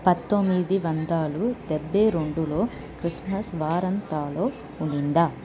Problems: constant background noise, background conversations at intervals